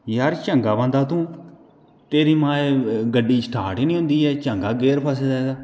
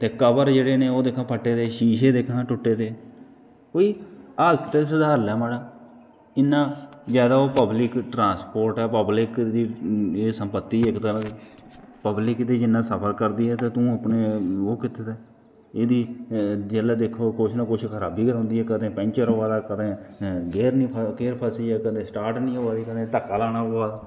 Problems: background sounds at intervals